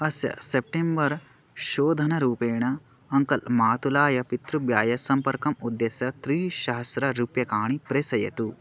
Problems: none marked